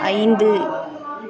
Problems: constant background noise, continuous background conversations